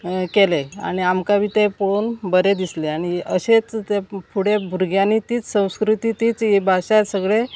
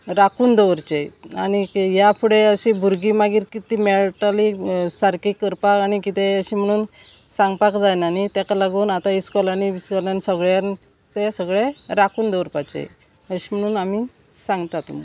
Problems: none marked